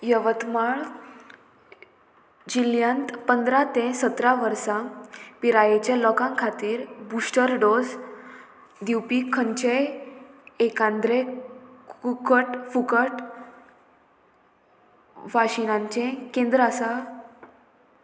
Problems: constant background noise